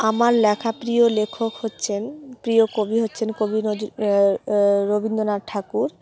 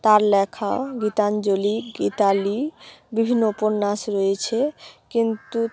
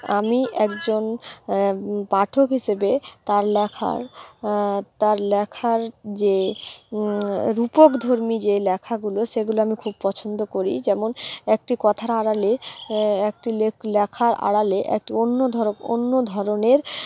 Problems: background sounds at intervals